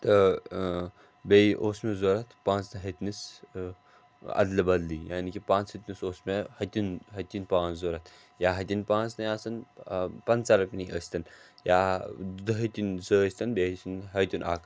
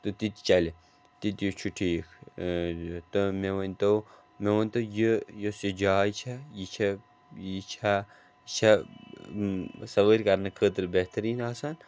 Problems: background sounds at intervals